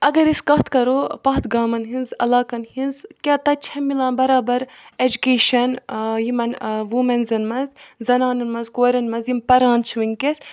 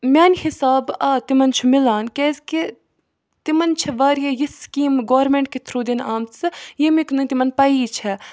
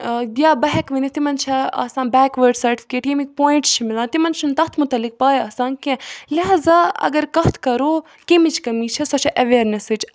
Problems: background sounds at intervals